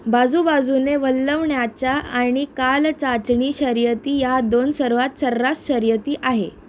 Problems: constant background noise